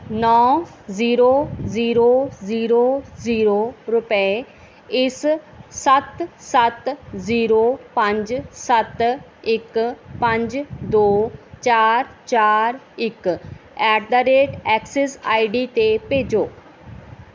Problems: background sounds at intervals